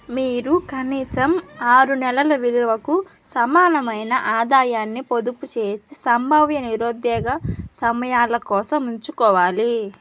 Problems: background sounds at intervals